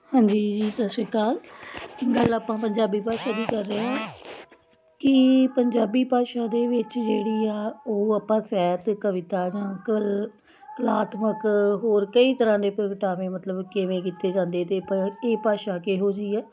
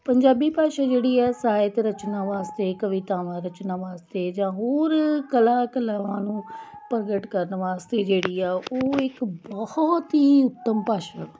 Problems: none marked